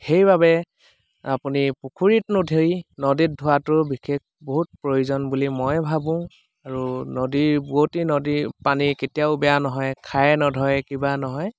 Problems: none marked